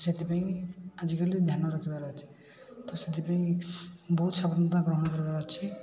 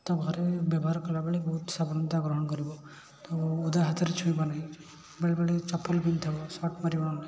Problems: constant background noise, continuous background conversations